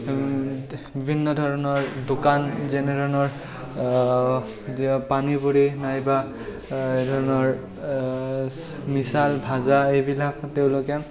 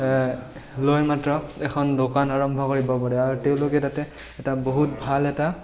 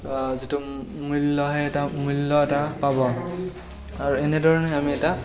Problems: none marked